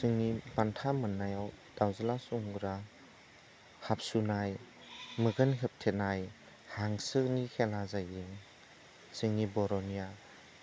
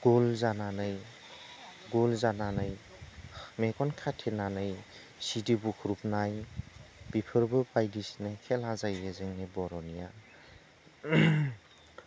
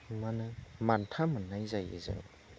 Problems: none marked